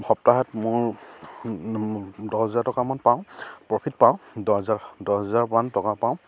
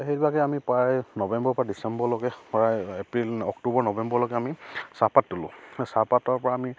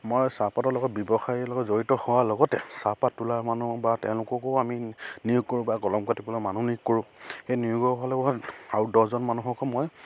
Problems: constant background noise, background conversations at intervals